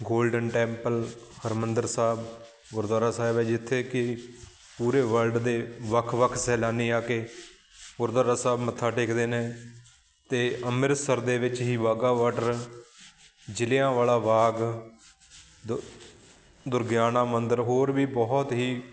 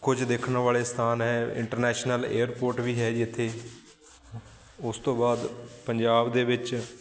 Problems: constant background noise